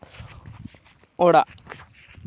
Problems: constant background noise